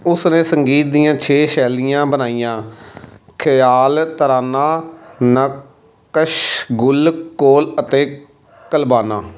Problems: background conversations at intervals